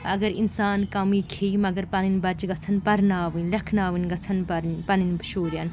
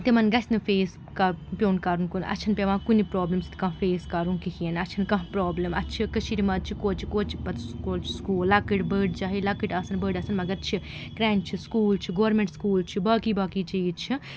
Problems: constant background noise